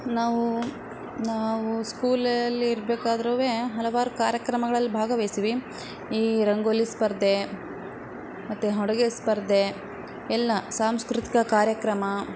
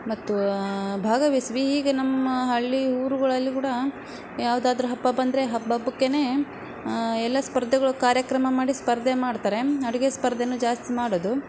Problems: background sounds at intervals